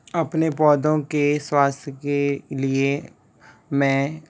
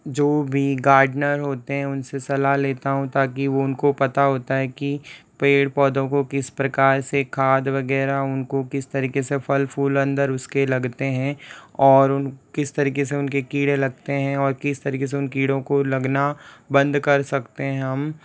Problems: none marked